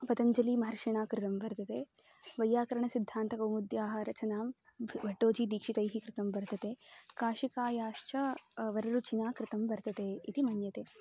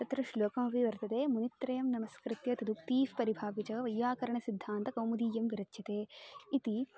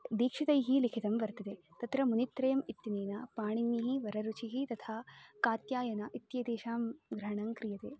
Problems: background sounds at intervals